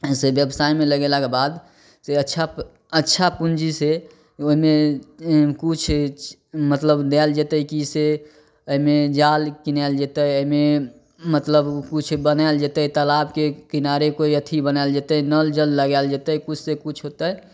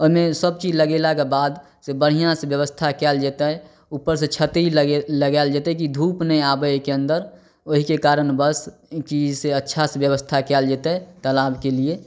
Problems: none marked